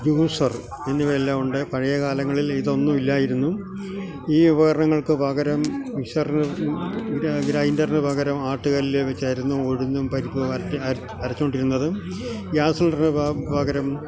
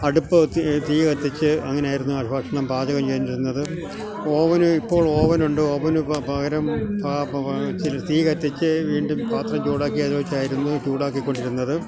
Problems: constant background noise, low volume